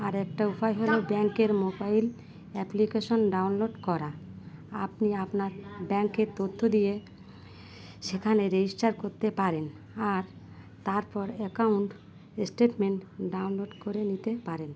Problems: none marked